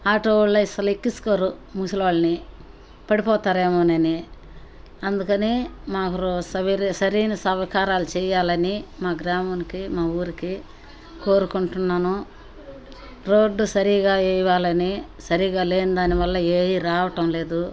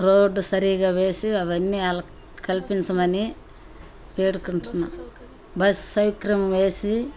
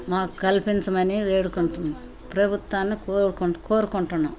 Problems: none marked